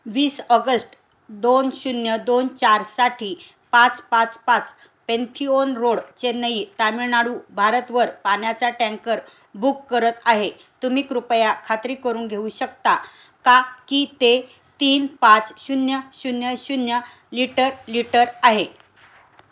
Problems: background sounds at intervals